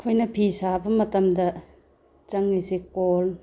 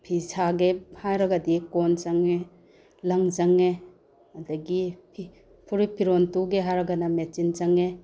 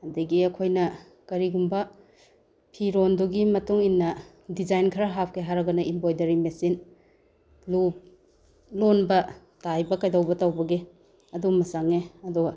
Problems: background sounds at intervals